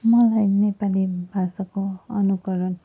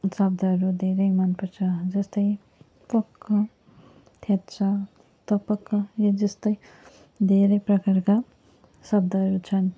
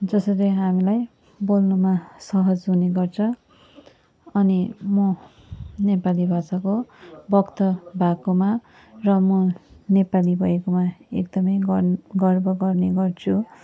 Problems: none marked